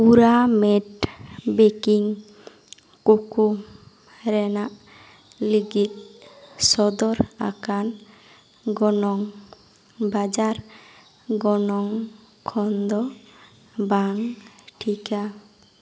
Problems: echo